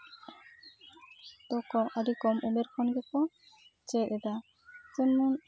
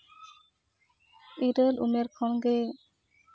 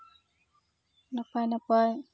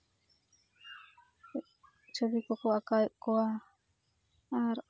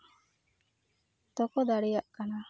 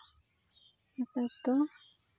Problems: none marked